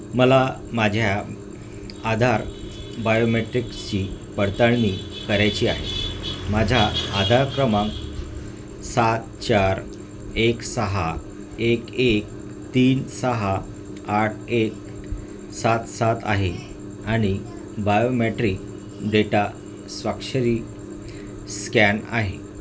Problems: constant background noise